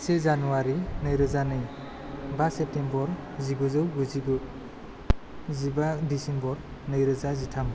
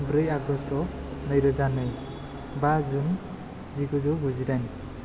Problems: none marked